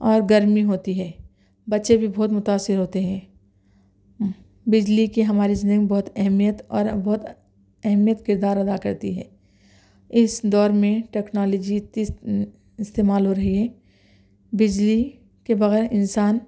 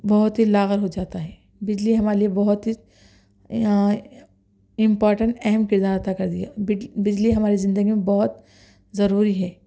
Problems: none marked